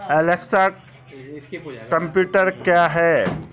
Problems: continuous background conversations